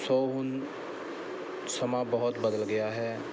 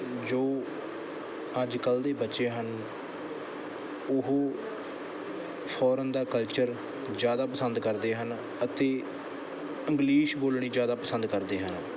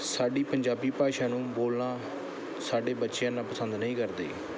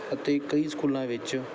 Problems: background sounds at intervals